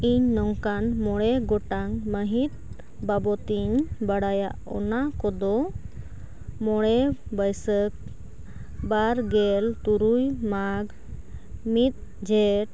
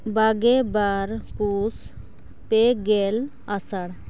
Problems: constant background noise